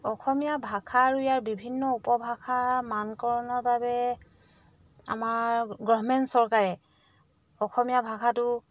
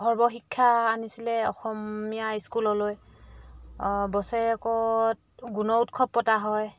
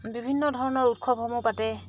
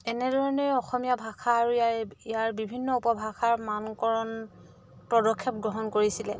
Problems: none marked